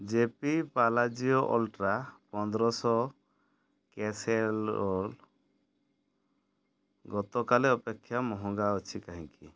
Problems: none marked